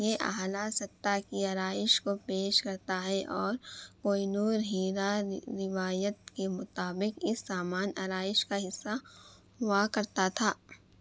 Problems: none marked